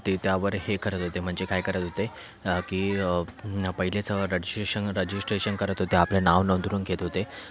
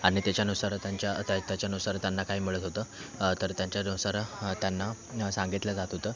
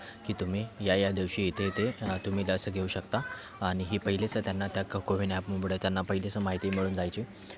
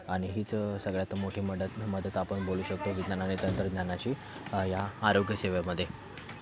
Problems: background sounds at intervals, background conversations at intervals